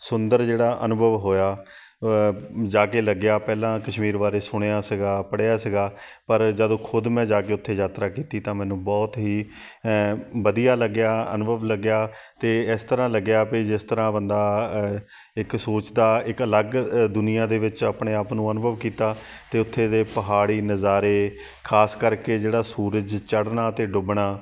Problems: none marked